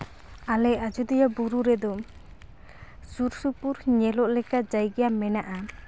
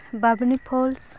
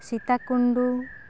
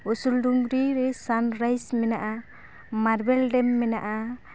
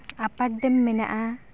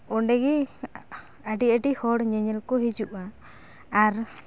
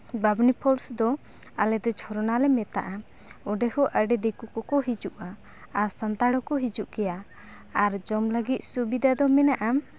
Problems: constant background noise